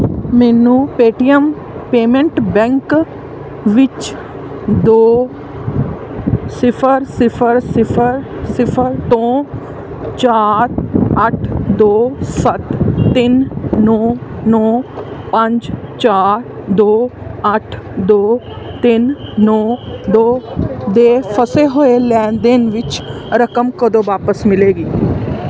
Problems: constant background noise